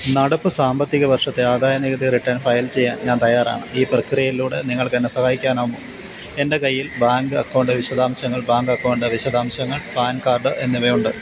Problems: constant background noise